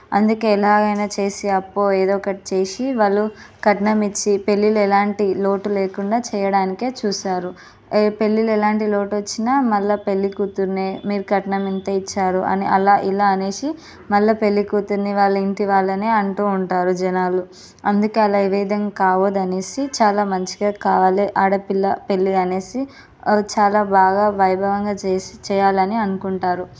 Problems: none marked